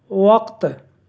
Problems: constant background noise